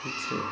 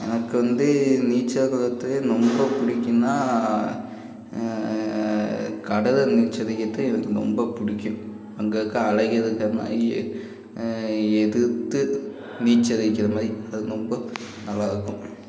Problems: constant background noise, continuous background conversations